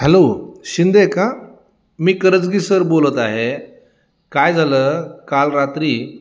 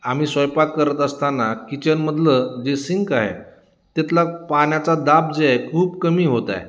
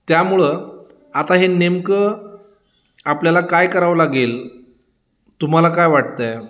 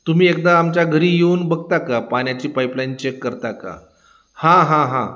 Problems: constant background noise, background conversations at intervals